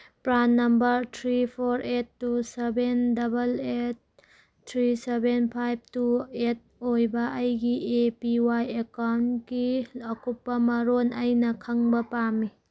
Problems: none marked